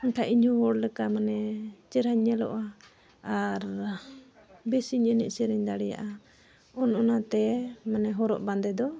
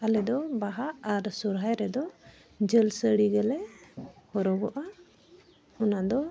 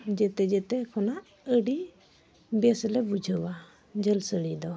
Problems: none marked